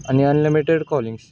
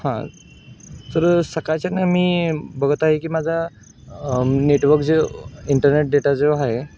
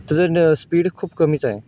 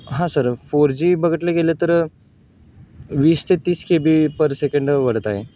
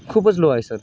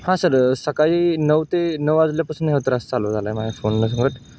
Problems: background sounds at intervals